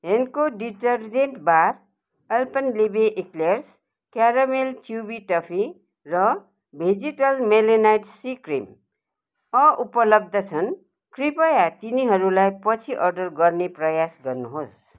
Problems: none marked